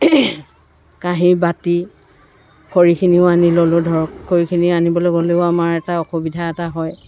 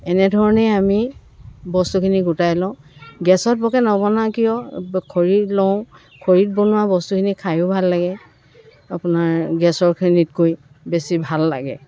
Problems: constant background noise, continuous background conversations